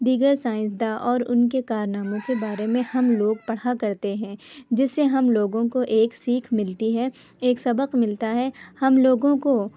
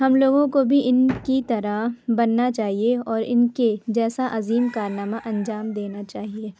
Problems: background sounds at intervals